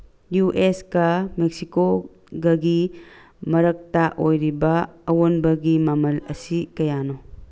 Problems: background sounds at intervals